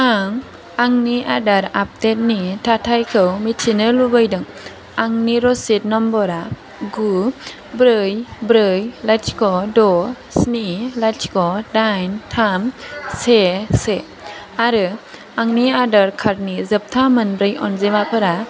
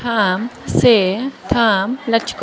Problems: constant background noise